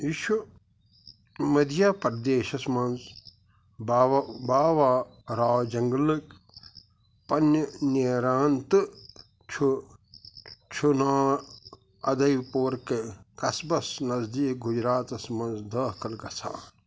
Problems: constant background noise